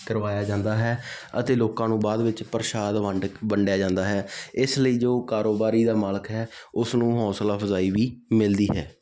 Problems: constant background noise